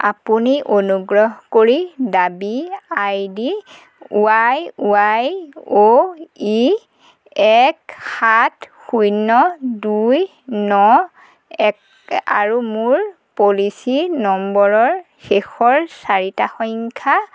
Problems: constant background noise